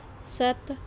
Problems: background sounds at intervals